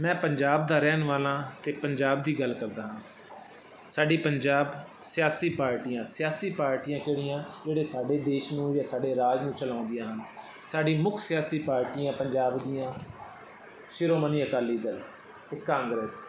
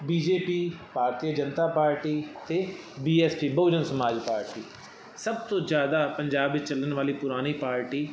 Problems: constant background noise